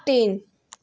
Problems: background sounds at intervals